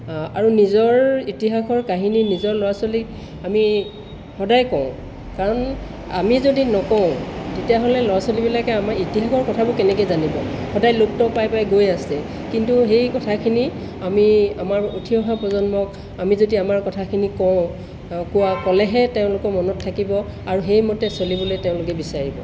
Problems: background sounds at intervals